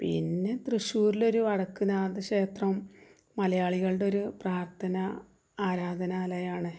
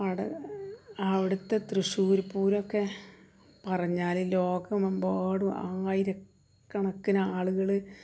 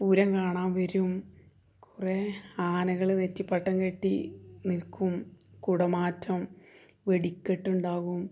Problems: low volume